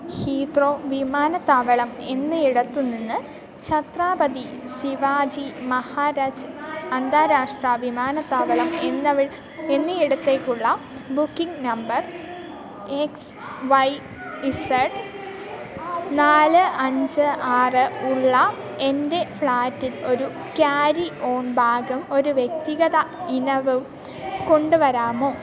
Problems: continuous background conversations, low volume